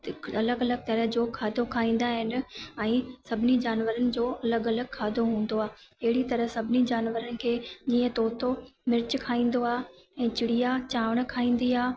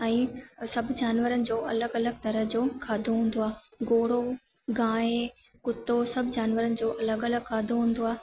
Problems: constant background noise, echo